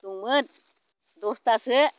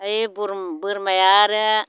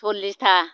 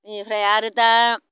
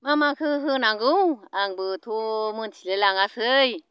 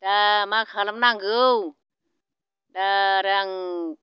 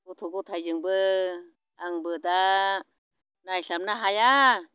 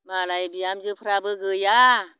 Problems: none marked